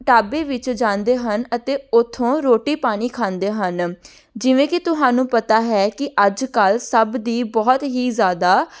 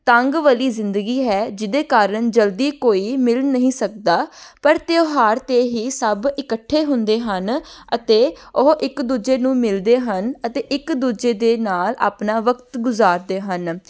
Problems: none marked